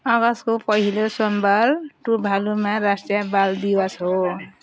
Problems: background sounds at intervals